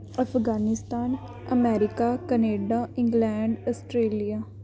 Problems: none marked